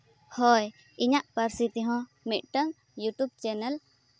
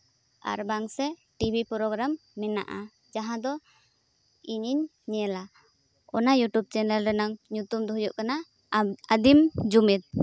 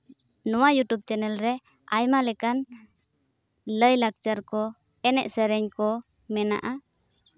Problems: none marked